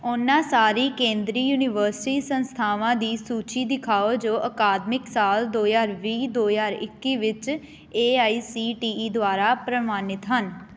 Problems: constant background noise